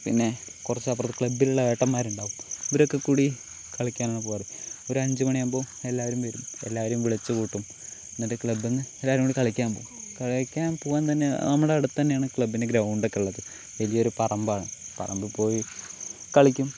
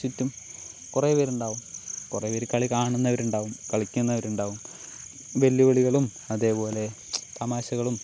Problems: constant background noise